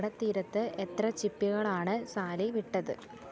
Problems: background sounds at intervals, low volume